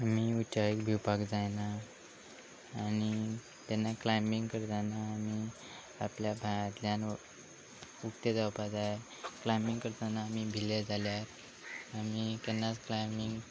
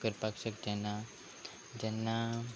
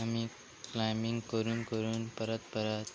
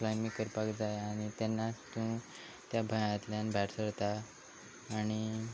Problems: constant background noise